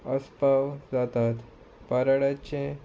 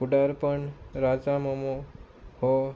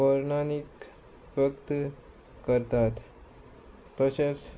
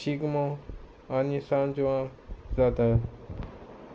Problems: none marked